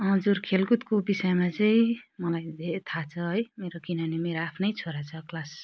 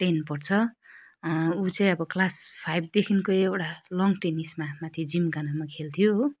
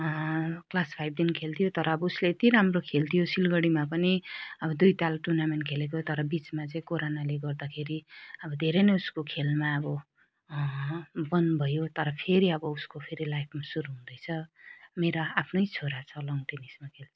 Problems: none marked